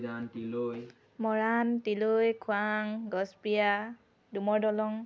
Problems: none marked